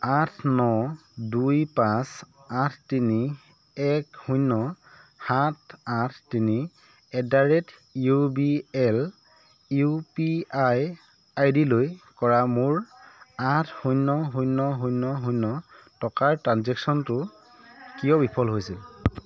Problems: background conversations at intervals